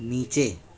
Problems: none marked